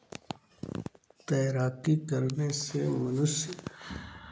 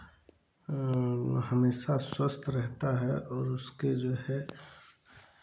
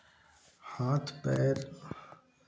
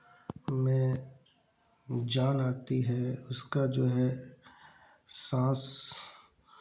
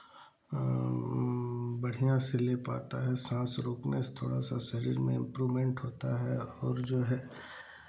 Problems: constant background noise, background conversations at intervals